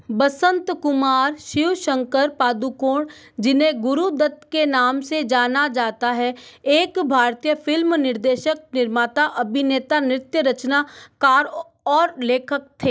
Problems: none marked